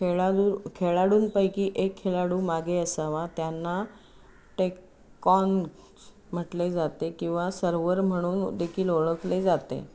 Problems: constant background noise